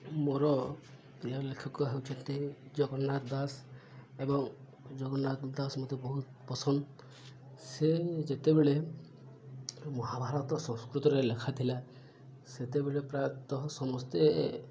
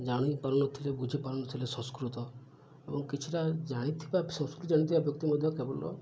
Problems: low volume